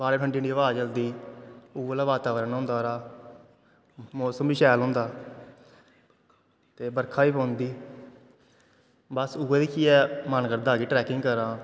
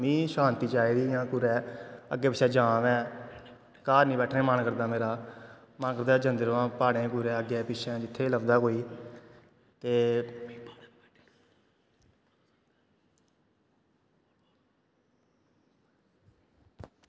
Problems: constant background noise